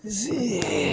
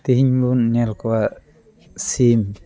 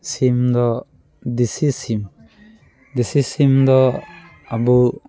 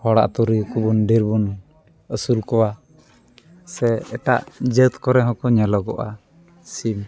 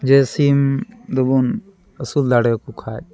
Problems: none marked